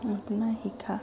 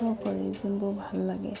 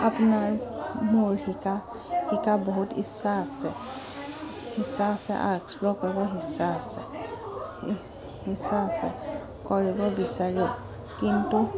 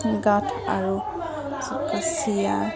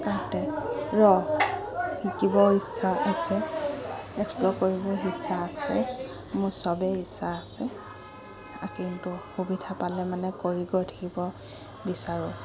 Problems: none marked